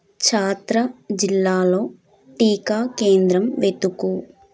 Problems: none marked